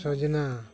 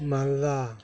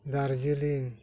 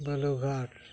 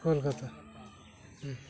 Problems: none marked